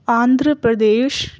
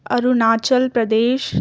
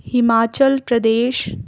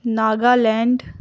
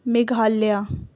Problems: background sounds at intervals